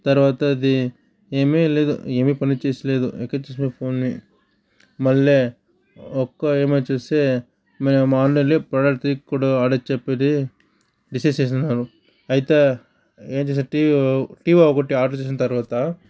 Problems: none marked